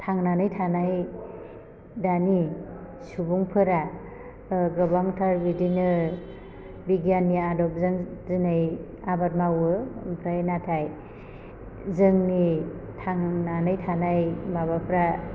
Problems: constant background noise